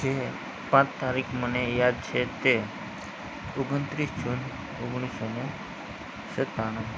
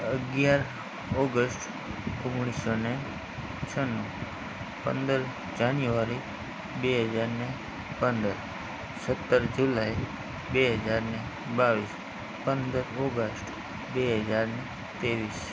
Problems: constant background noise, low volume